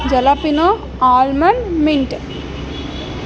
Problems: constant background noise